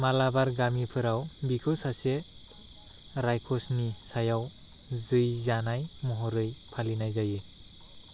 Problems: none marked